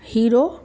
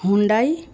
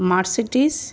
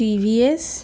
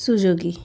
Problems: constant background noise